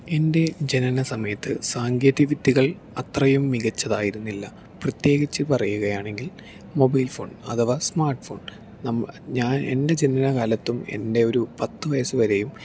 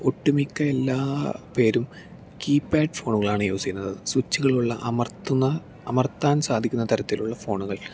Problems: none marked